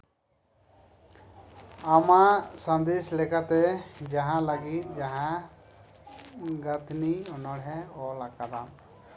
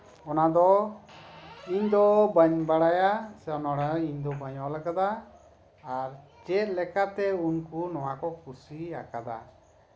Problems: none marked